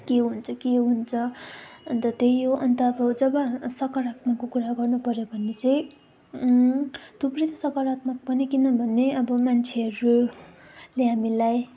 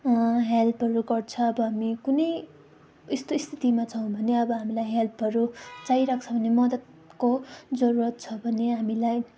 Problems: constant background noise